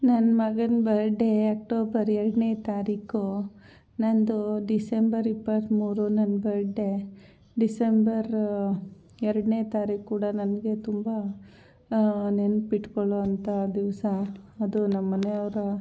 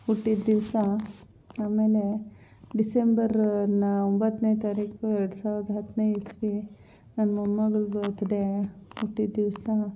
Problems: constant background noise